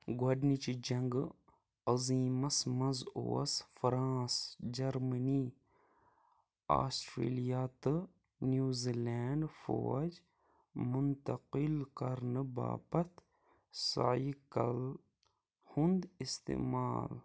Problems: low volume